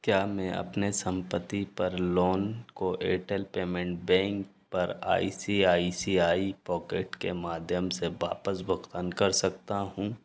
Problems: background sounds at intervals